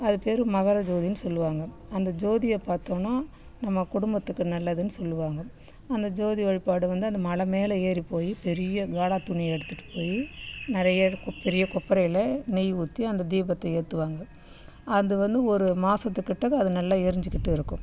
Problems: none marked